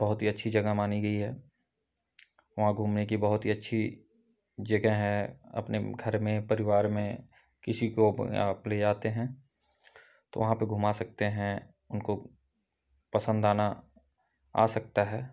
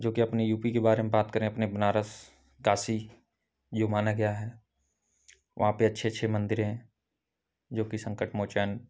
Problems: background sounds at intervals